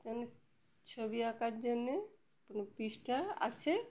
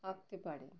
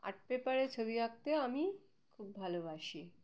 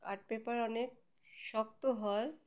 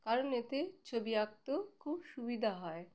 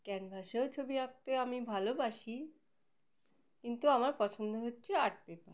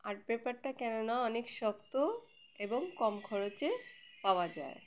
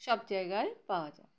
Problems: none marked